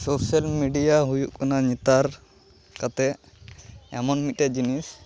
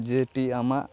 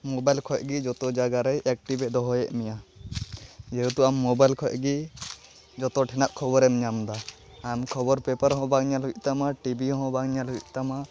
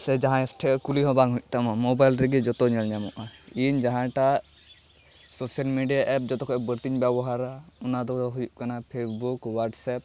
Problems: background sounds at intervals, continuous background conversations